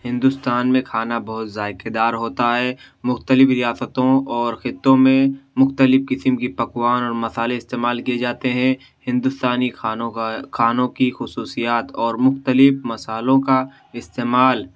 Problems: none marked